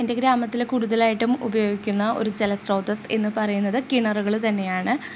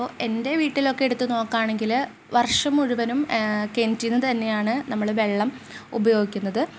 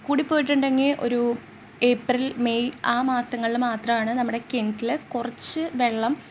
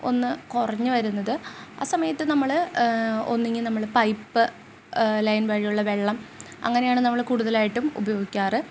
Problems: constant background noise